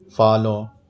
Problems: constant background noise